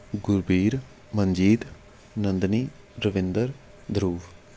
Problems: constant background noise